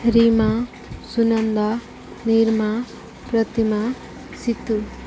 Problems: constant background noise